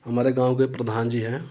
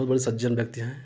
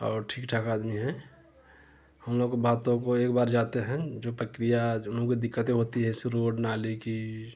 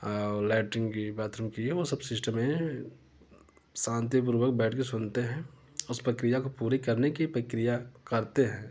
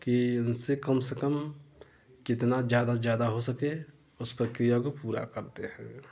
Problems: constant background noise